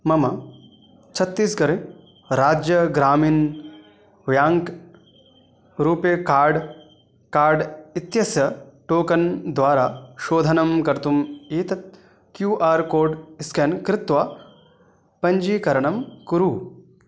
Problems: background sounds at intervals